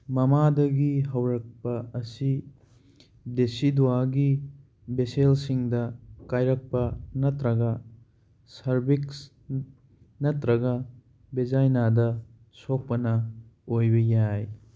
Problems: none marked